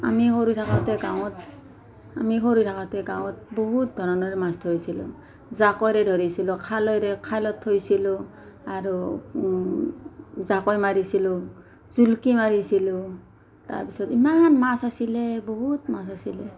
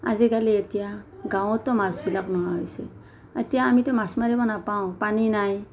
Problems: background conversations at intervals